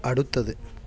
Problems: none marked